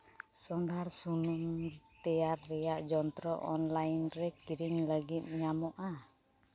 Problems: none marked